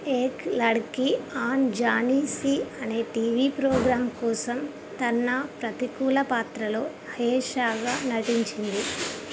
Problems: constant background noise